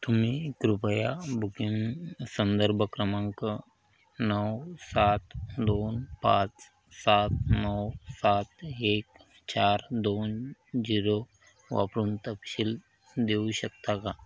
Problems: none marked